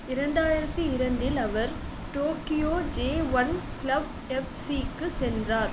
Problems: constant background noise